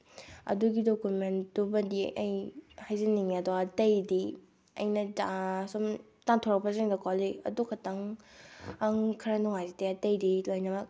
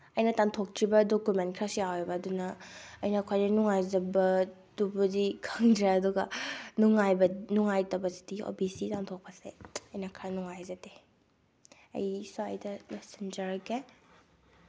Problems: none marked